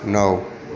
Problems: continuous background conversations